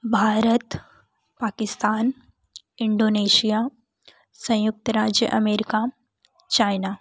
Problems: background sounds at intervals